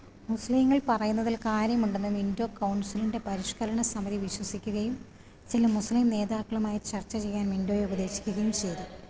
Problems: none marked